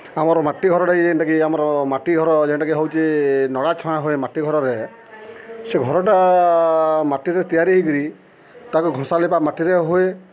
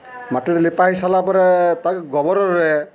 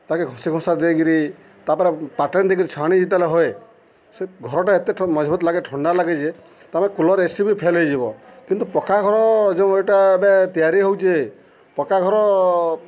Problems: constant background noise